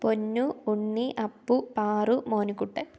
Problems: low volume